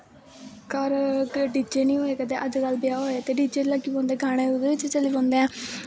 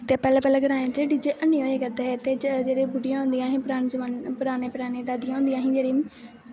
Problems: constant background noise